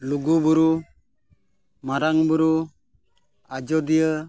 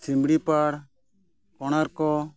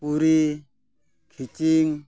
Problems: none marked